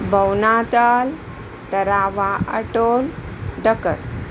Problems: constant background noise